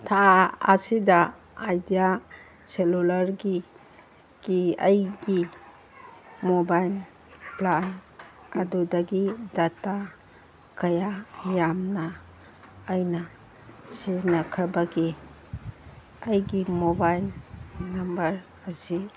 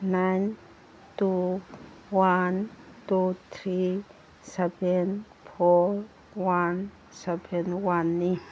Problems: background sounds at intervals